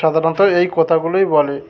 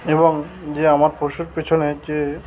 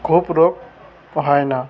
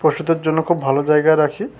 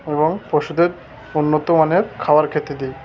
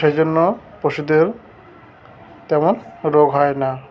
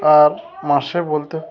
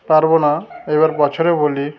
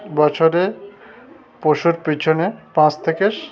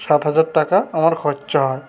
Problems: constant background noise, continuous background conversations